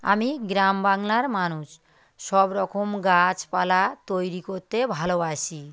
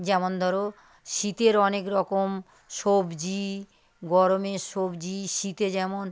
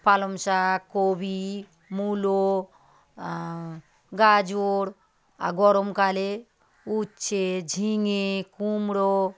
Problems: none marked